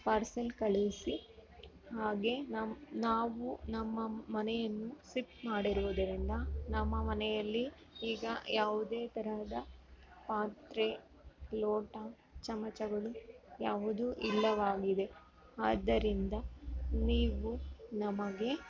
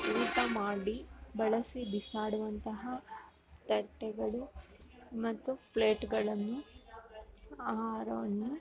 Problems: background sounds at intervals